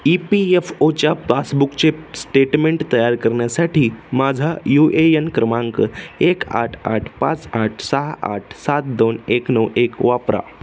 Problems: none marked